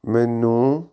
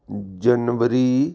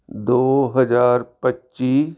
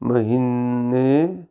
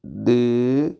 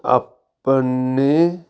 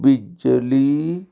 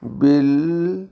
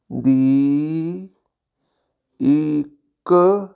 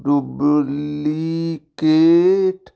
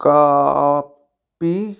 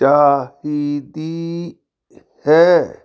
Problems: none marked